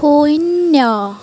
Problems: constant background noise, background conversations at intervals